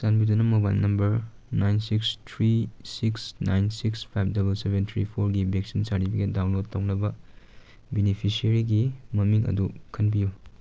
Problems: background sounds at intervals